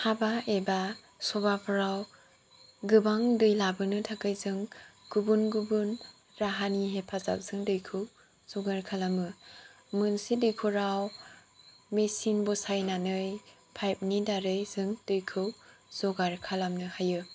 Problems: low volume